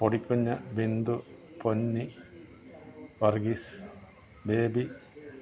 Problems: low volume